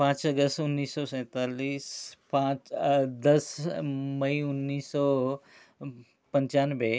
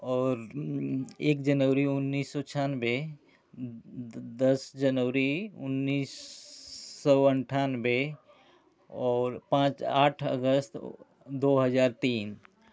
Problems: constant background noise